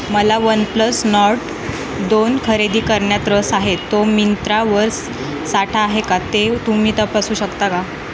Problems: constant background noise